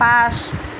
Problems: constant background noise